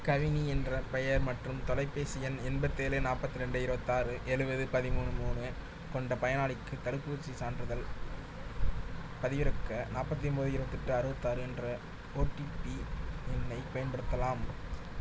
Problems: low volume